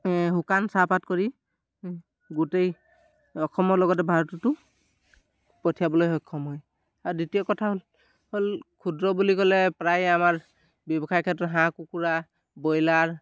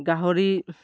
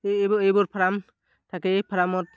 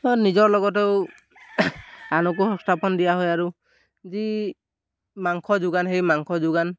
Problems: background sounds at intervals